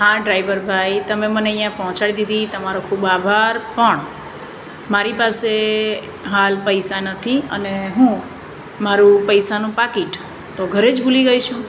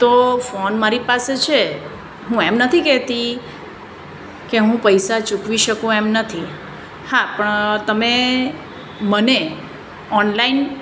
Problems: none marked